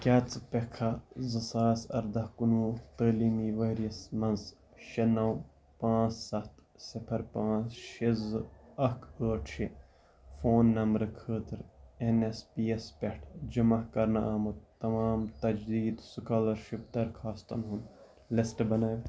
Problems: background sounds at intervals